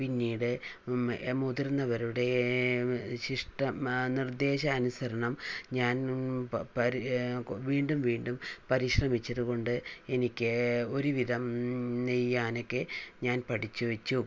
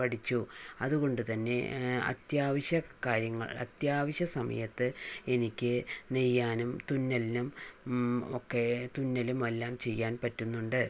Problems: low volume